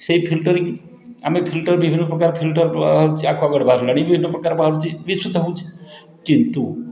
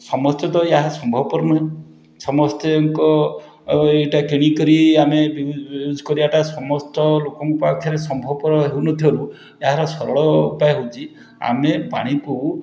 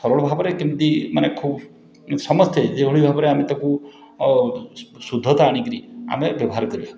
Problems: background sounds at intervals, continuous background conversations